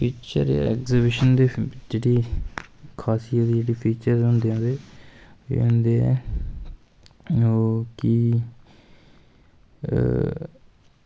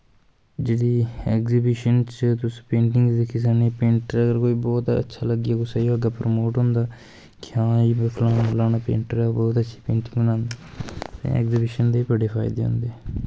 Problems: constant background noise